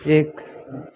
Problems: none marked